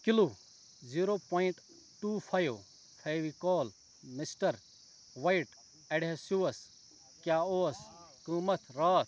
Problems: constant background noise, background conversations at intervals